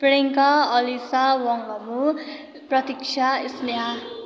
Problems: none marked